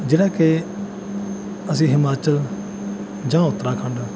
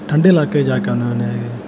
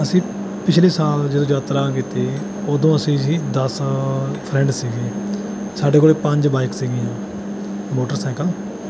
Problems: none marked